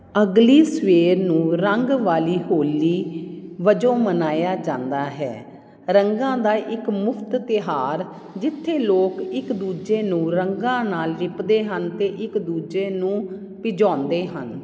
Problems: none marked